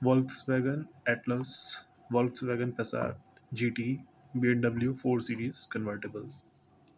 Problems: constant background noise